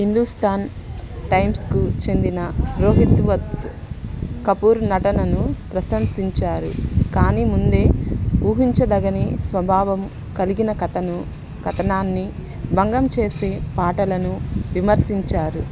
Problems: constant background noise, background conversations at intervals